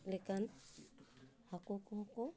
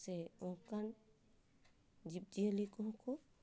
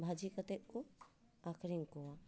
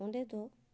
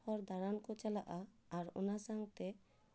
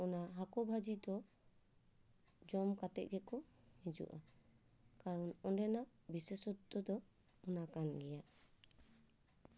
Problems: background sounds at intervals